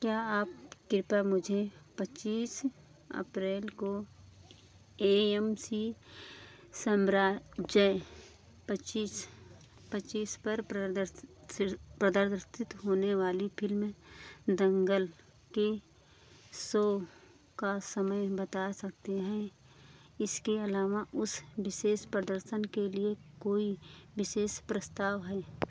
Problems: none marked